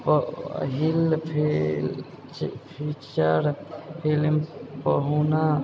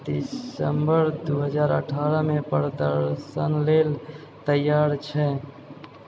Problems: background sounds at intervals, background conversations at intervals, low volume